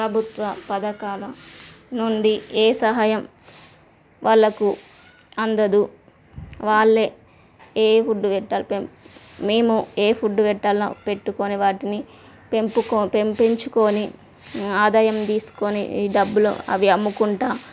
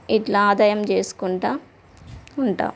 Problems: constant background noise